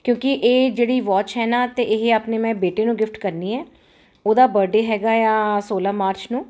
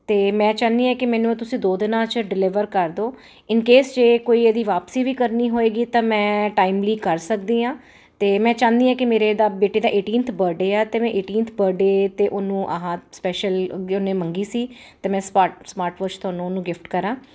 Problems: none marked